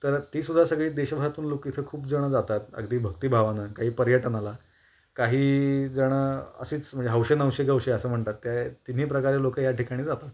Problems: none marked